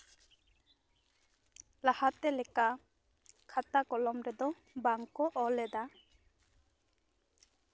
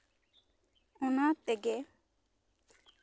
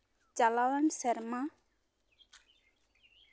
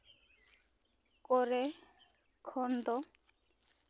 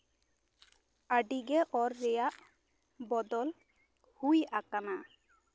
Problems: constant background noise